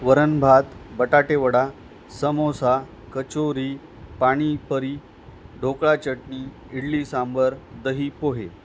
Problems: constant background noise